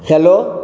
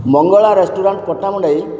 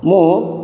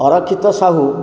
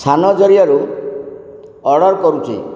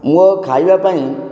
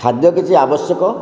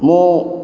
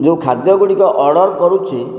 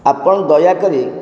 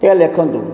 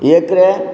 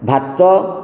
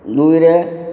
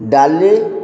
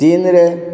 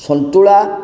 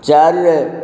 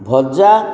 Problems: none marked